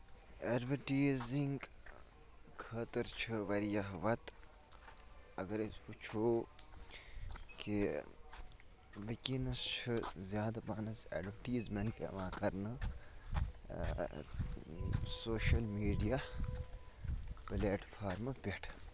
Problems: constant background noise, low volume